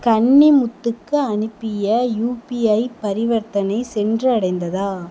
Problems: constant background noise